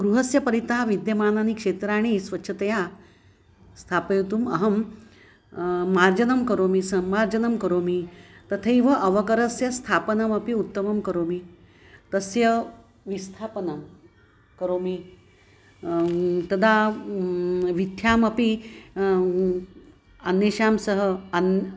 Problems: constant background noise